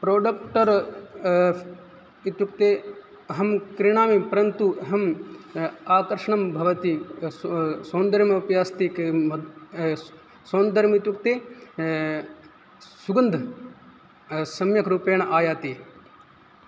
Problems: none marked